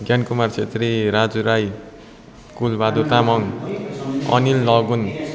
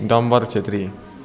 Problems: constant background noise